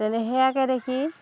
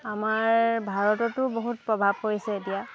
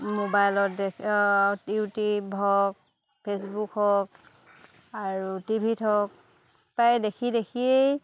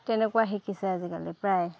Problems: constant background noise, background conversations at intervals